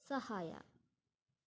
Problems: low volume